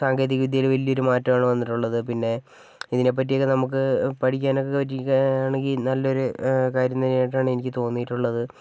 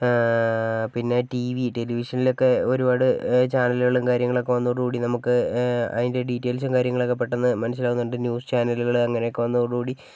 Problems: none marked